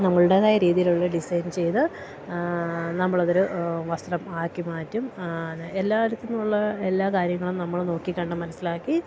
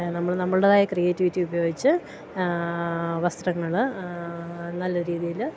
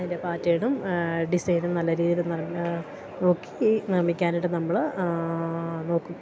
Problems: none marked